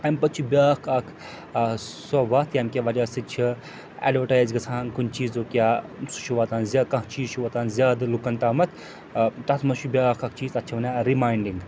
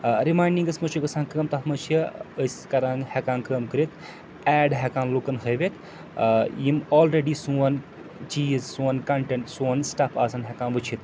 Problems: constant background noise, background conversations at intervals